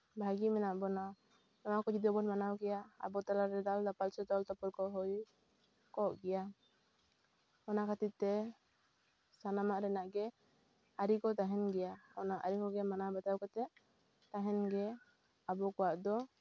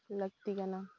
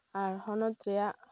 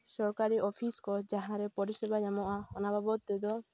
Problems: background sounds at intervals